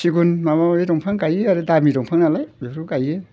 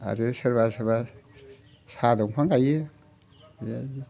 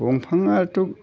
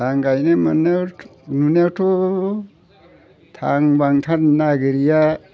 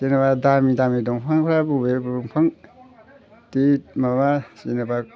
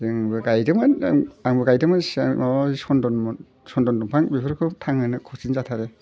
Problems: constant background noise